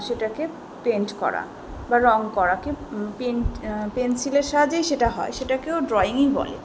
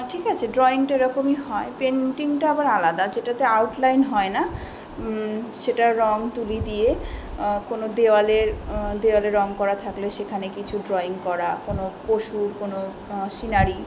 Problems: background conversations at intervals